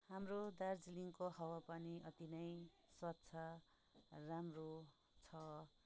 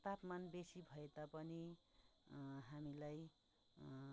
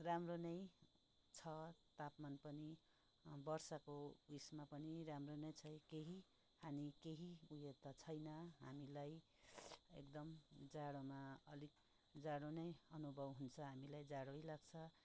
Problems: low volume